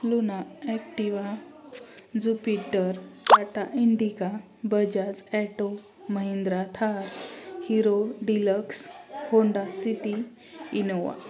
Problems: constant background noise, background conversations at intervals